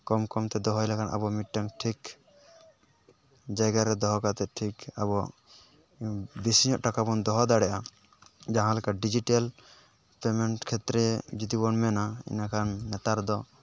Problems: background sounds at intervals